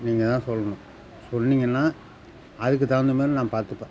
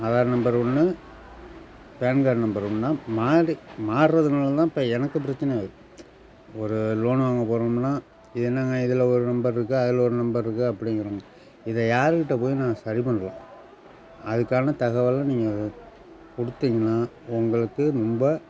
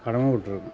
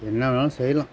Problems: constant background noise